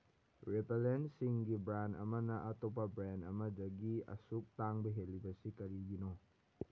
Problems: background sounds at intervals